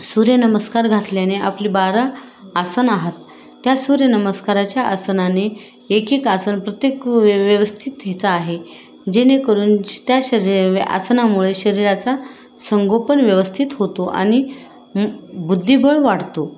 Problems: constant background noise